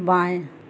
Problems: background sounds at intervals